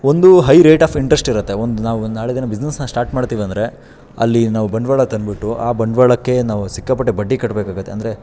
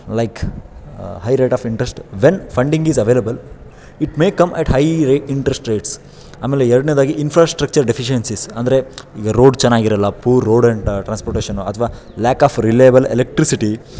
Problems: none marked